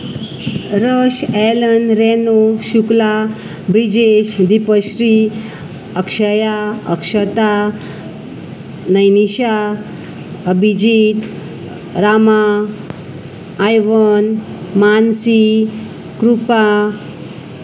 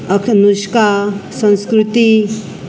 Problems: constant background noise, background conversations at intervals